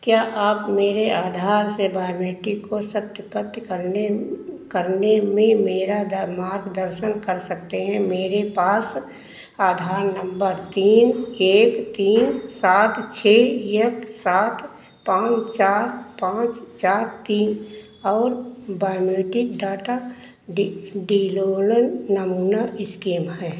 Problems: constant background noise, echo